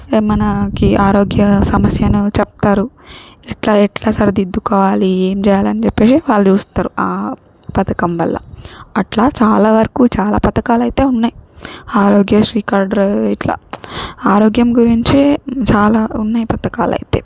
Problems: none marked